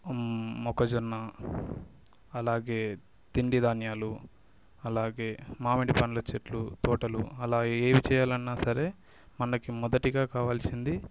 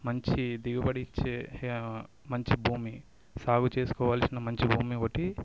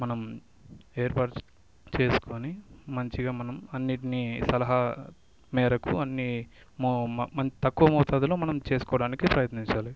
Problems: background sounds at intervals